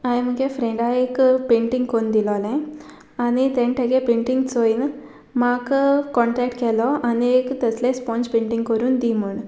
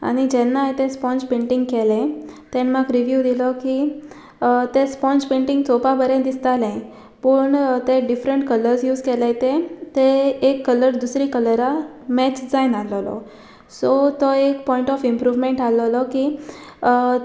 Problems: background sounds at intervals